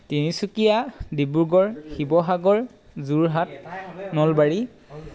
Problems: background sounds at intervals